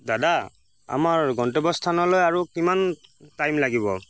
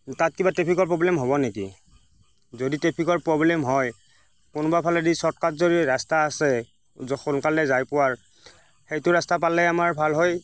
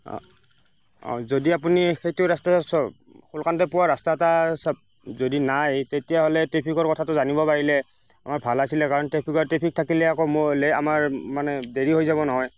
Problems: constant background noise